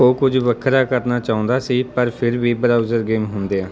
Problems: background sounds at intervals